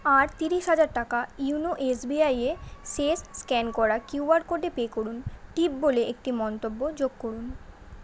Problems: constant background noise